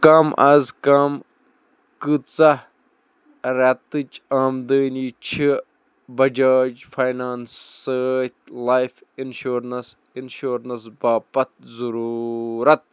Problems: none marked